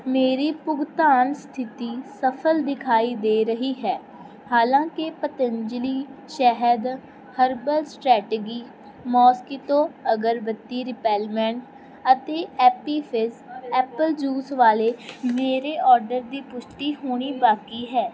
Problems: background conversations at intervals